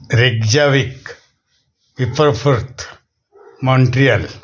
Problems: constant background noise